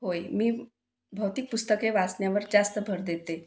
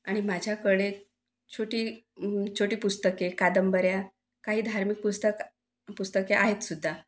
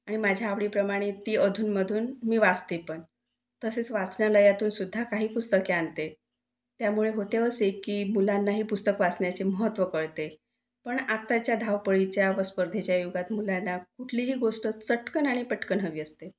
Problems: none marked